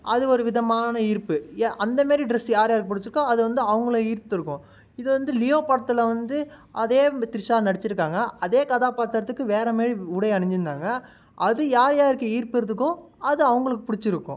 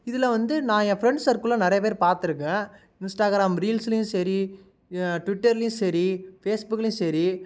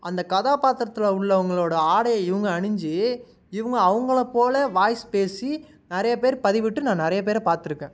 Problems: none marked